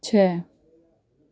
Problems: none marked